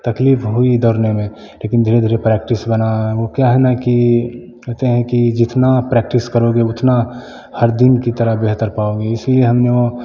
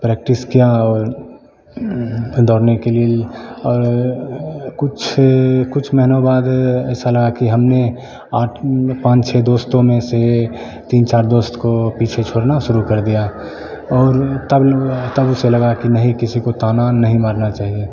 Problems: none marked